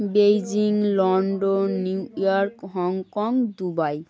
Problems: constant background noise